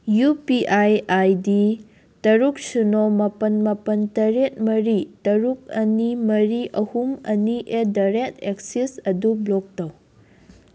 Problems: background sounds at intervals